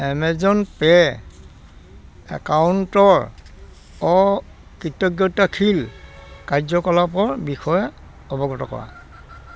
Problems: constant background noise